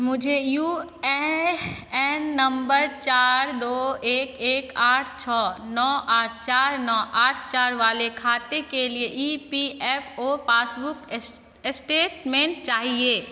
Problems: none marked